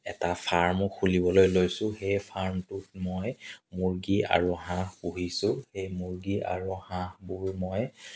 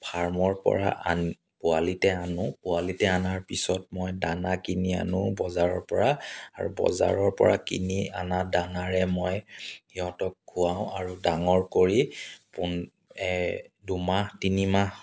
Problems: background sounds at intervals, background conversations at intervals